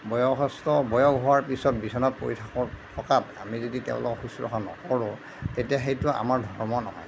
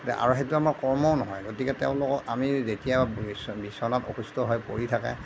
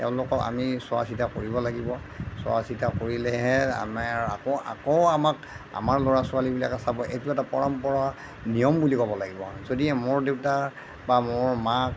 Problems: none marked